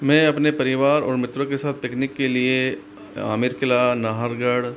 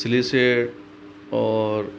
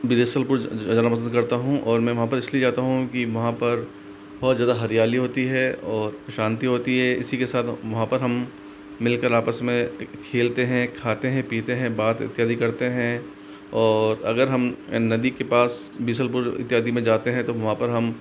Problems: constant background noise